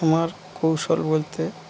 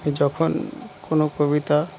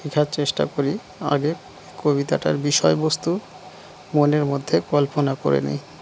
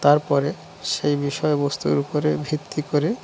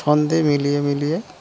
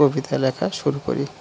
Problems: constant background noise